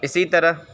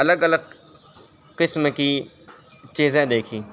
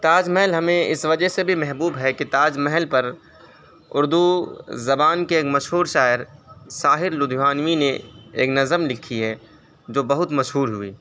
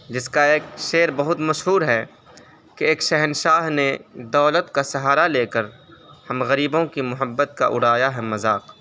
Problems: constant background noise, background conversations at intervals